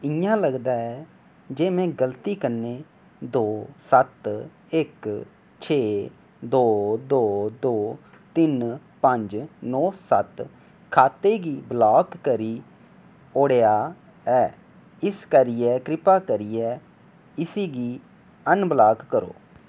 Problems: none marked